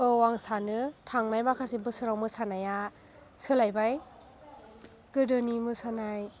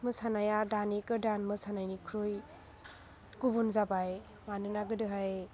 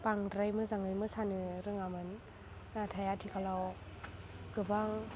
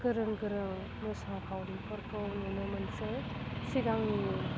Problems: constant background noise